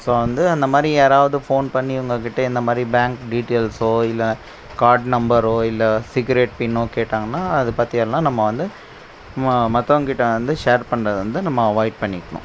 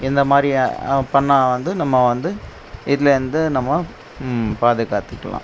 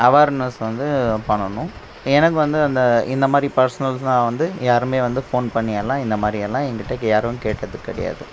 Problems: none marked